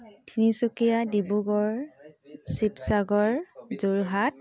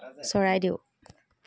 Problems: constant background noise